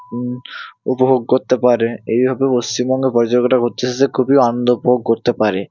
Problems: none marked